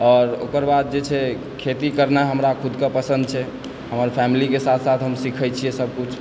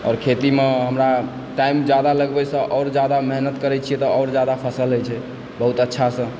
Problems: constant background noise